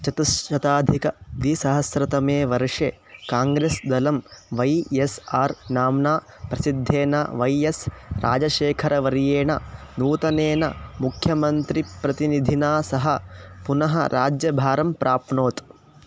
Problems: constant background noise